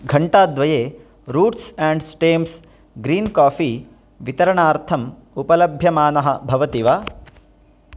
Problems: background sounds at intervals